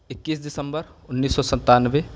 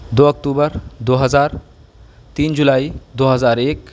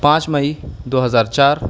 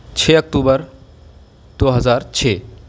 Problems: background sounds at intervals, low volume